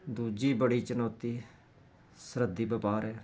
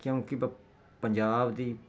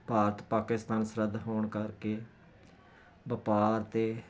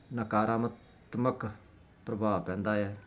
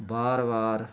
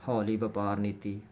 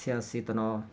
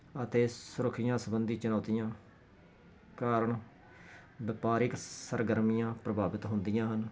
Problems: none marked